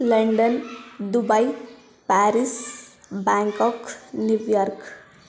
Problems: continuous background conversations